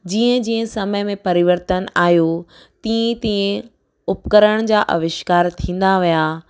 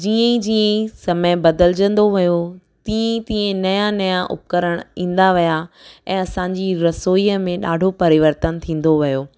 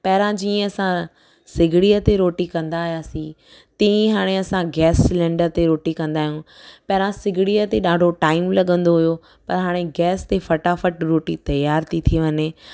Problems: none marked